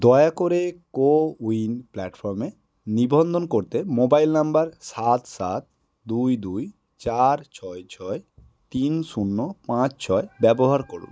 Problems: constant background noise